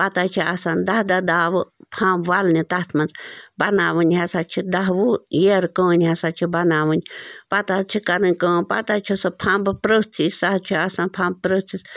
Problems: none marked